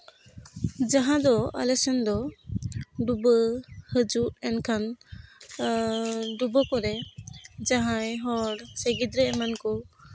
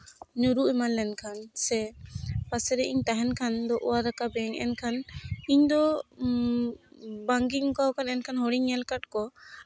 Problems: constant background noise